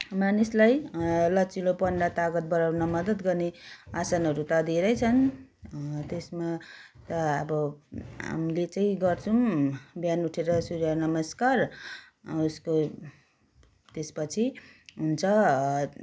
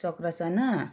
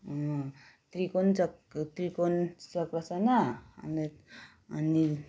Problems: background sounds at intervals